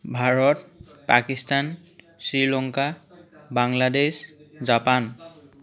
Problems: continuous background conversations